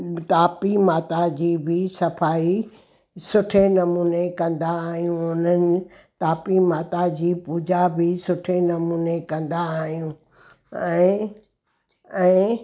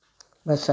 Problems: none marked